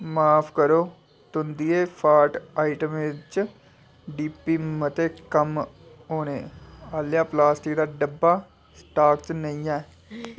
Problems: constant background noise